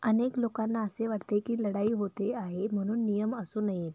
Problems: background sounds at intervals, low volume